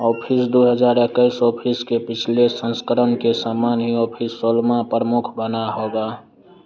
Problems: constant background noise